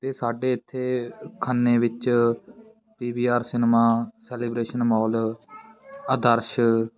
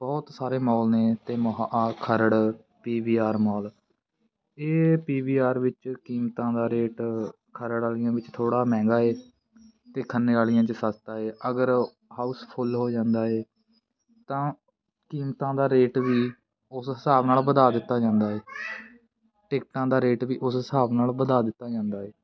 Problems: continuous background conversations